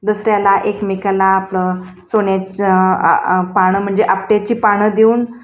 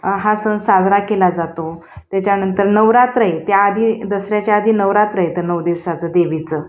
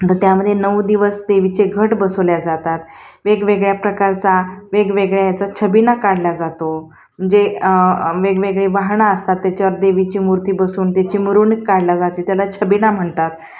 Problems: constant background noise, background conversations at intervals, echo